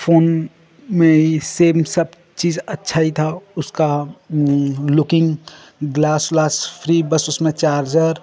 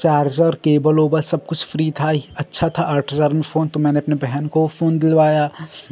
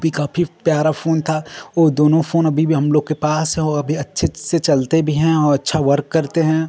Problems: none marked